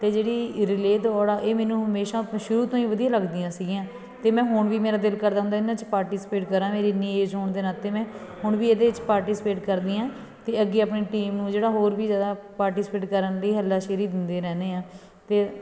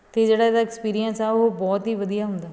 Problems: background sounds at intervals, continuous background conversations